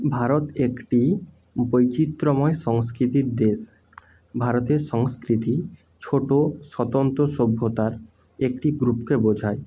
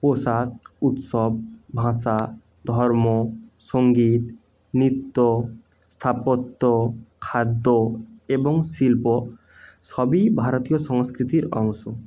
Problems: none marked